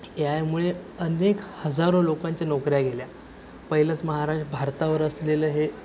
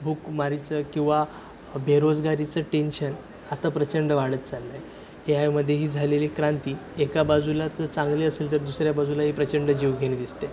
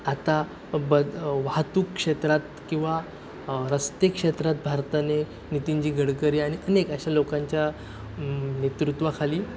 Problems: background sounds at intervals